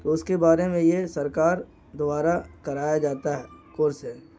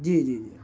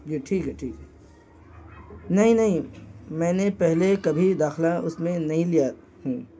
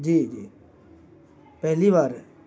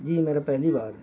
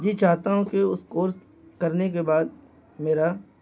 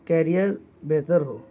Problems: constant background noise